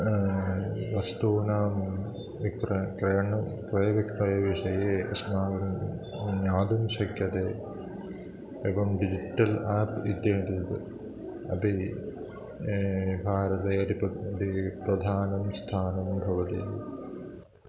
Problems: constant background noise, continuous background conversations